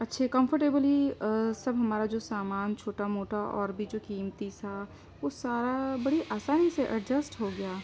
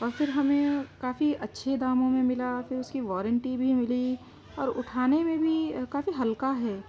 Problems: constant background noise